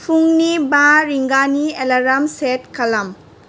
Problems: constant background noise